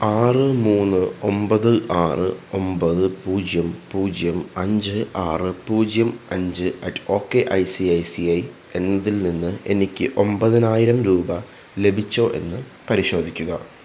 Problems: constant background noise